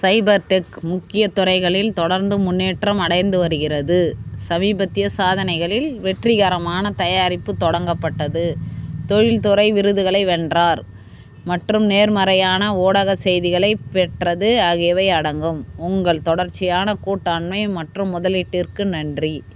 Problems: constant background noise